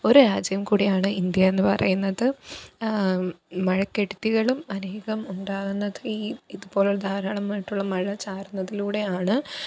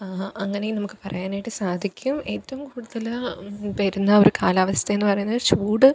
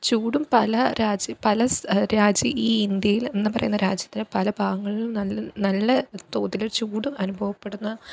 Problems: none marked